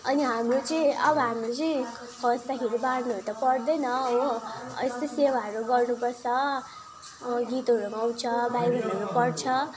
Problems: none marked